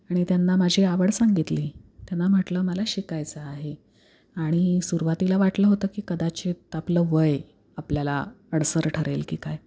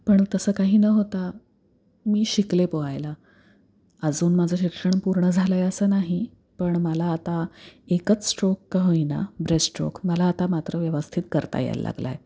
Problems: none marked